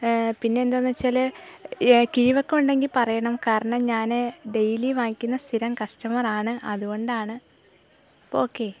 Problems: none marked